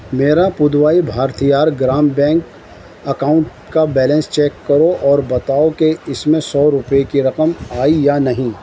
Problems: constant background noise